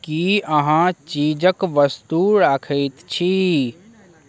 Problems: none marked